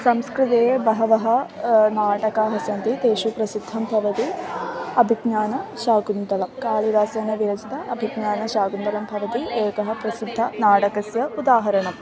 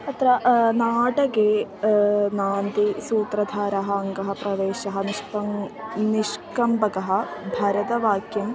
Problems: constant background noise, continuous background conversations